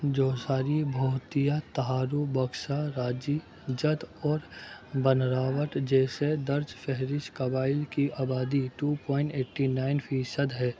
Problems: constant background noise, background conversations at intervals, low volume